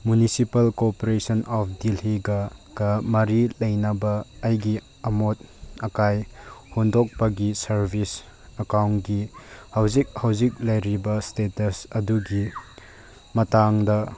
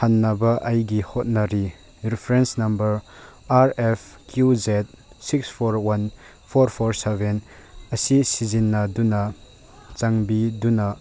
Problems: background sounds at intervals